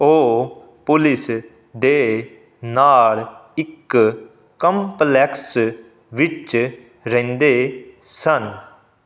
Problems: none marked